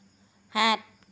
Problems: none marked